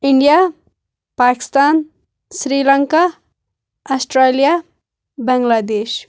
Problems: background sounds at intervals